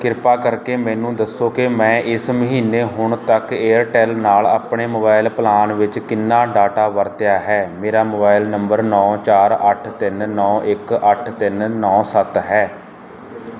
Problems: none marked